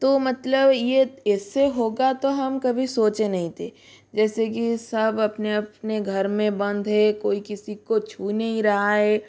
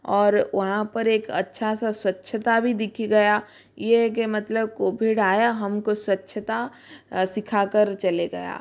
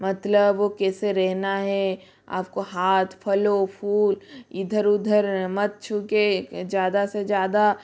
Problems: none marked